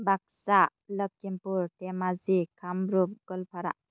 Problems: low volume